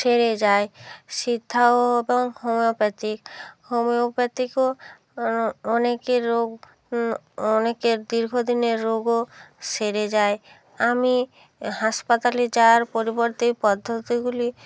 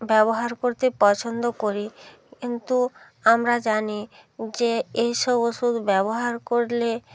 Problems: constant background noise